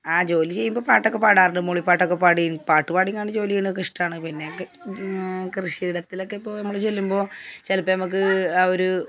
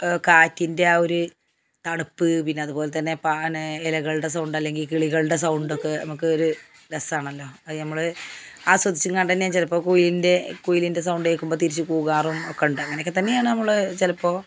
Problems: background sounds at intervals